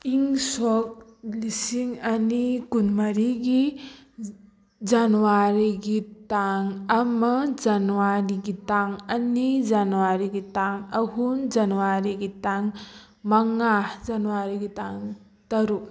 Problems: none marked